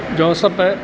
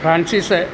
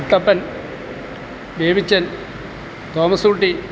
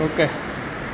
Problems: constant background noise